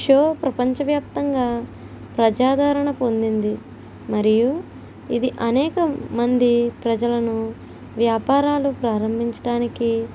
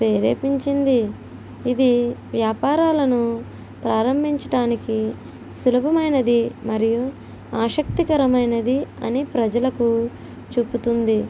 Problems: none marked